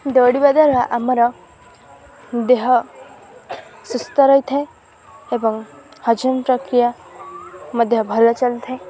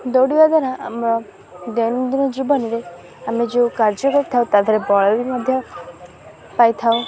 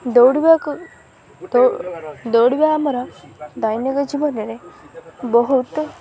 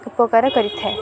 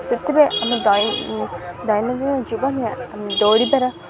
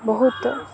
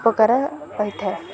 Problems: background sounds at intervals